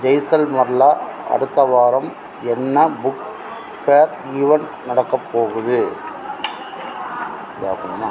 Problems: constant background noise, background conversations at intervals